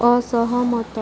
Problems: constant background noise